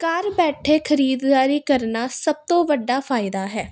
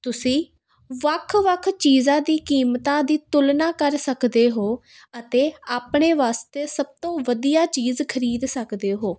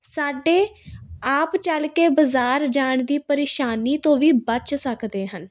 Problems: constant background noise